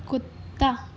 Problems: none marked